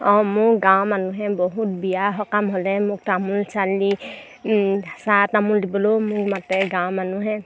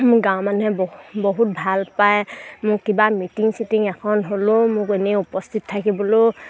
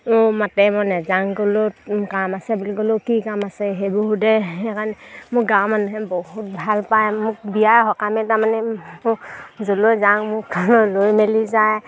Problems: none marked